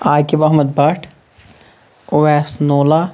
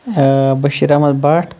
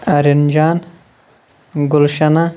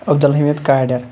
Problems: background sounds at intervals